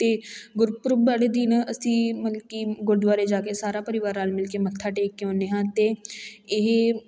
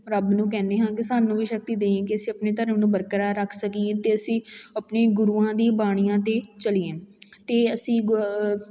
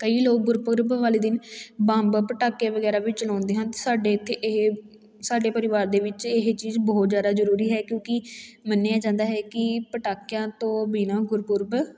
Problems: background sounds at intervals, background conversations at intervals